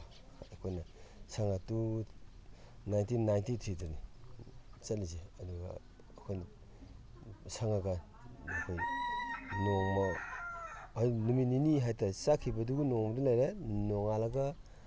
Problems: none marked